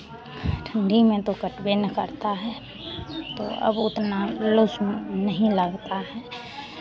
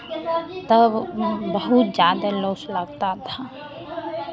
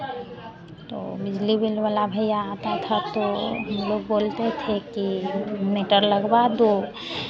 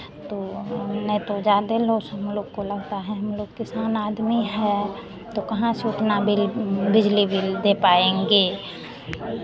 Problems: none marked